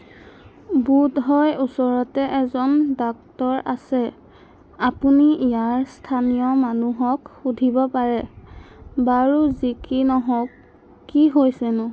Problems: constant background noise